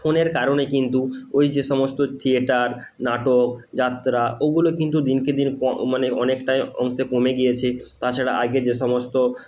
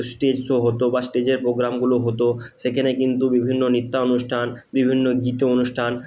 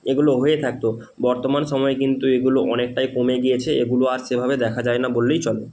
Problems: constant background noise